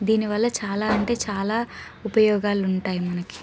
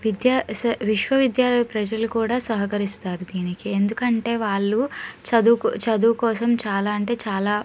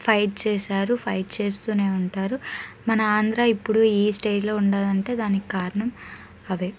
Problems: background sounds at intervals, background conversations at intervals